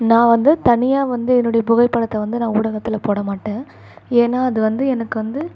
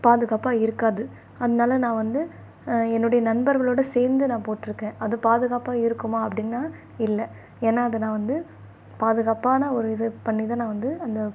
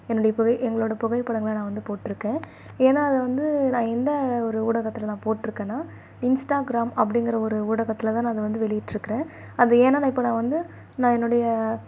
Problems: none marked